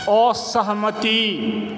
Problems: background sounds at intervals